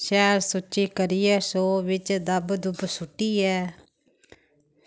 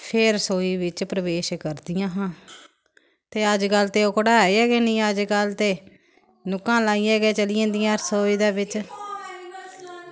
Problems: constant background noise